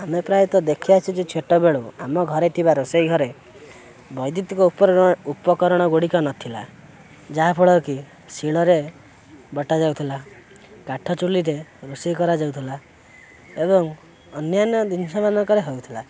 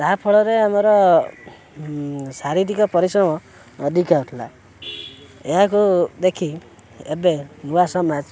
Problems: constant background noise